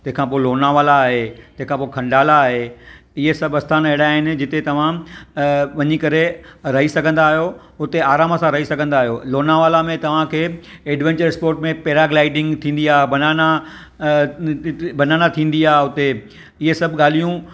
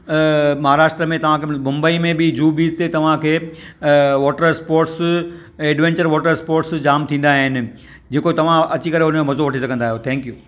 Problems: none marked